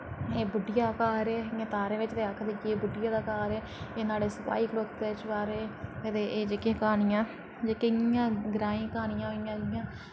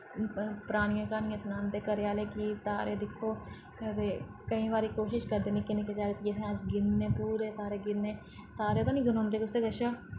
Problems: low volume